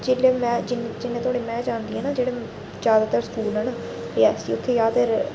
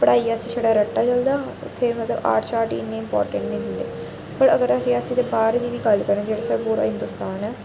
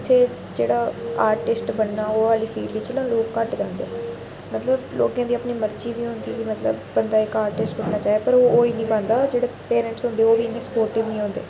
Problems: constant background noise